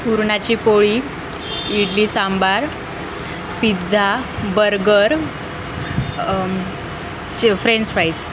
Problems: constant background noise